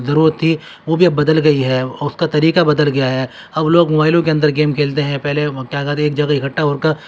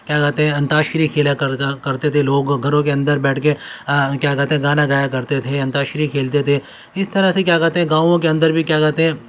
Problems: constant background noise